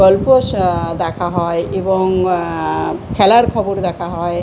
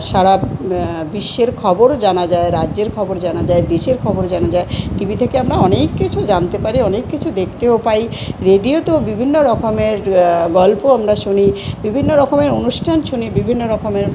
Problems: constant background noise